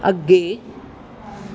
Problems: background sounds at intervals